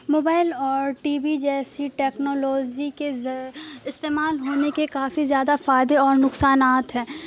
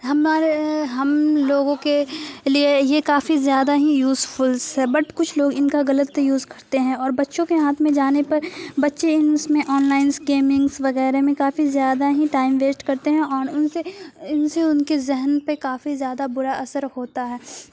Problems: constant background noise